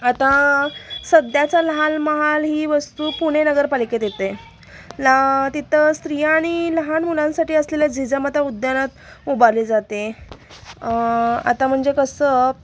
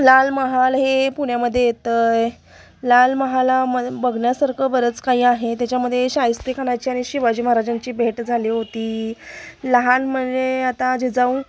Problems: constant background noise